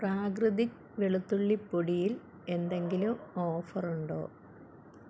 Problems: background sounds at intervals